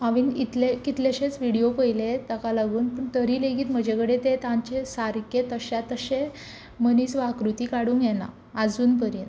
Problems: constant background noise